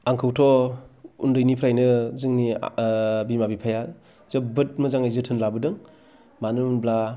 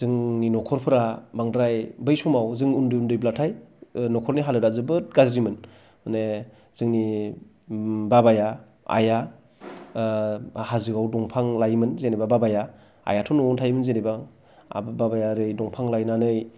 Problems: none marked